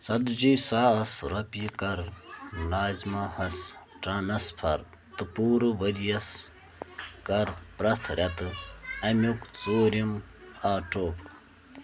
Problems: constant background noise